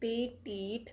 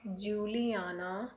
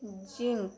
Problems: background sounds at intervals, continuous background conversations